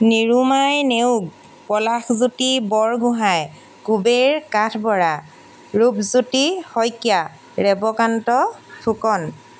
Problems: background sounds at intervals